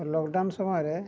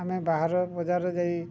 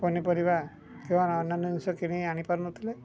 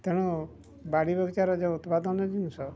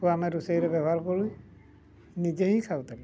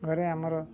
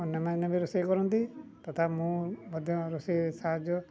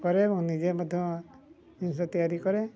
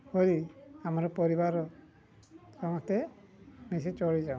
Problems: none marked